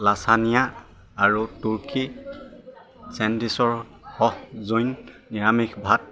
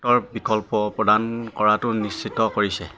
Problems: constant background noise, continuous background conversations